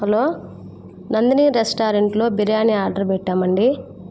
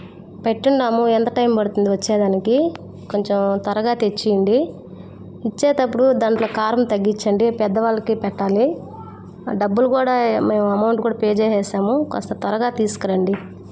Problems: constant background noise